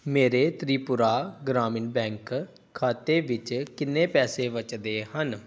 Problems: background sounds at intervals